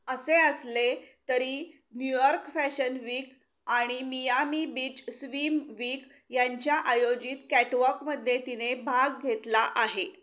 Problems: background sounds at intervals